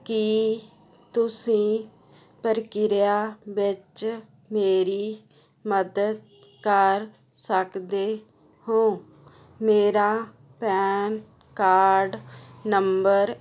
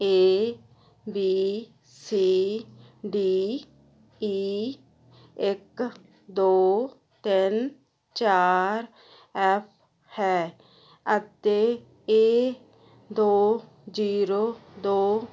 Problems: none marked